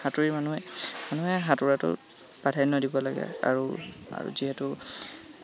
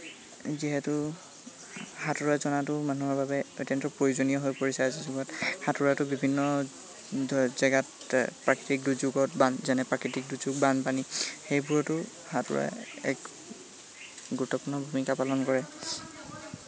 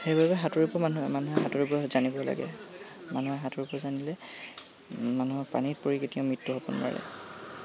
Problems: constant background noise, continuous background conversations